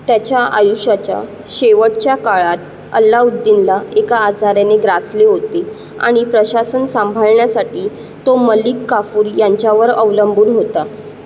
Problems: constant background noise